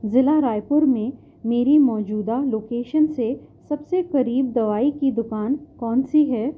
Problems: background sounds at intervals, low volume